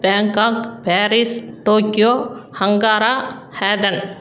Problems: background conversations at intervals